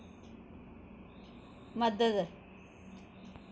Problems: echo